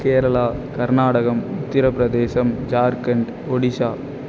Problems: constant background noise